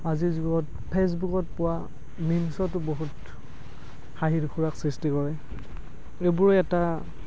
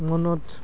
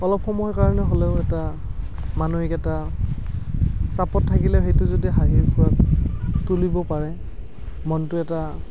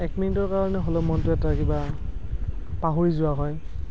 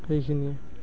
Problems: background sounds at intervals